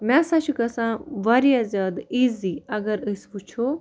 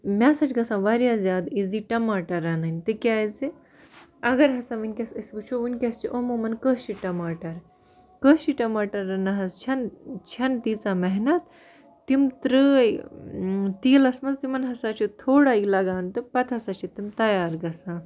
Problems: none marked